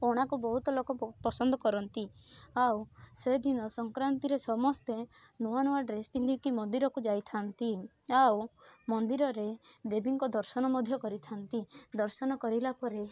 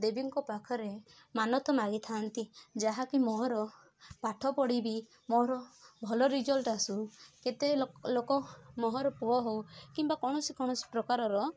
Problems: constant background noise, continuous background conversations